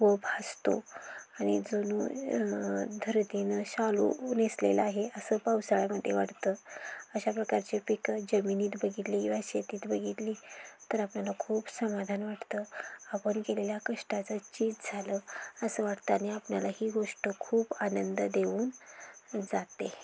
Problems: constant background noise